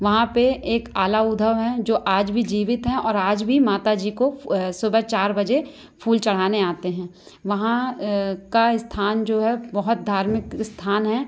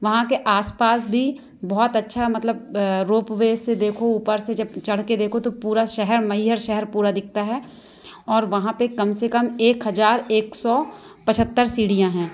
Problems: none marked